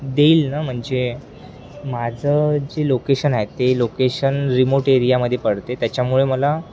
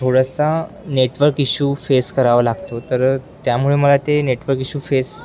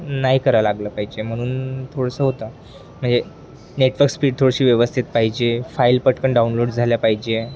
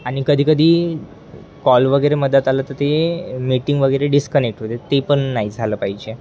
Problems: constant background noise